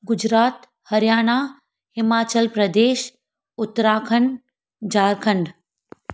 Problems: none marked